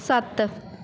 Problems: background sounds at intervals